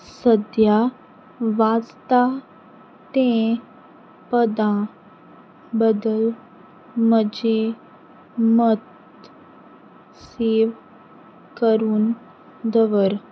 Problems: background sounds at intervals